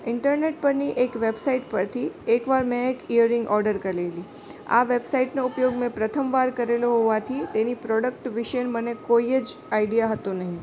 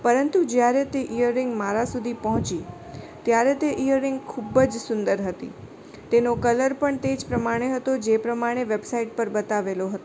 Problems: constant background noise, background conversations at intervals